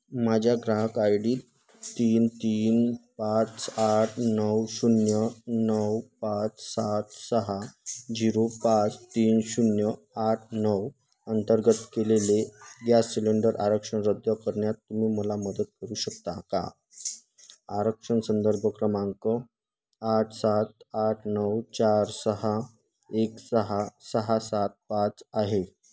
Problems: constant background noise